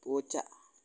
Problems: none marked